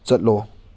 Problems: none marked